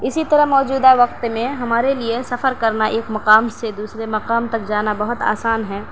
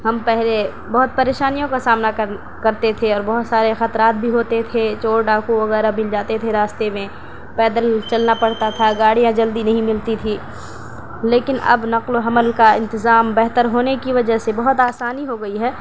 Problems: constant background noise, low volume